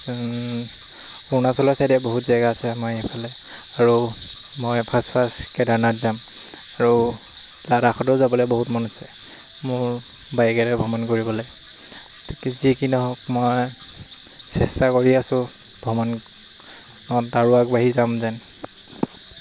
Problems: constant background noise